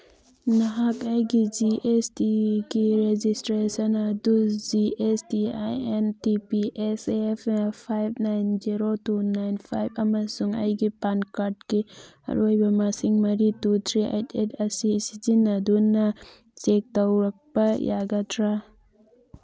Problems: none marked